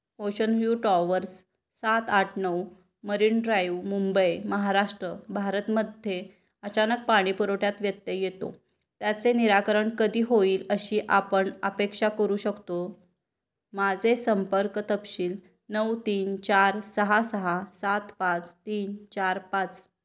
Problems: background sounds at intervals